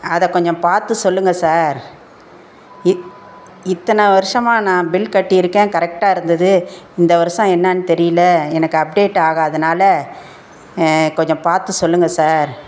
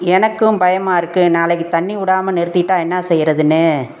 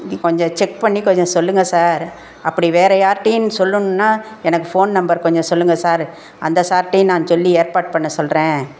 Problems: none marked